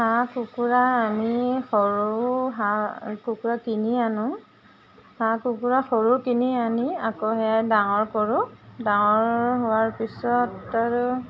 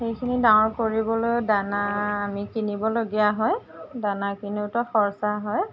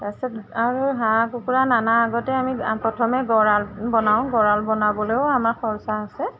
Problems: none marked